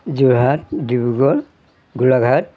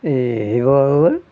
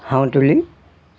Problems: none marked